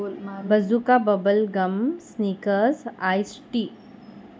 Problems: low volume